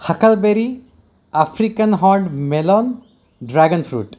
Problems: constant background noise